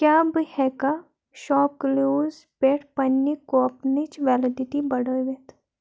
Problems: constant background noise